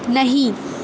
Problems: constant background noise